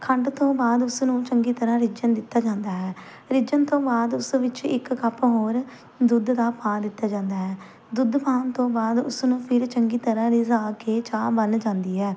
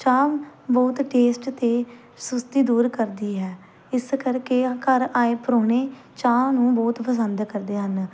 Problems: background sounds at intervals